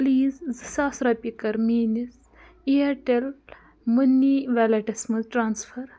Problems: background sounds at intervals